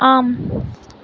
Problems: none marked